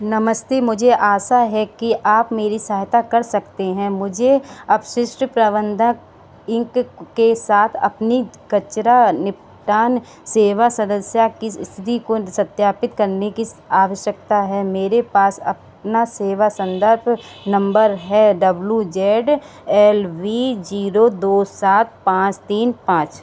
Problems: constant background noise